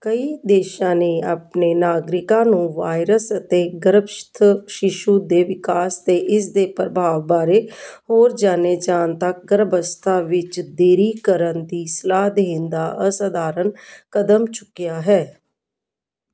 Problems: none marked